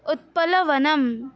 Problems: none marked